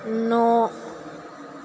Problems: constant background noise